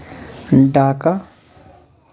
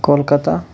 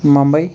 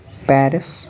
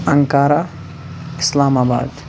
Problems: constant background noise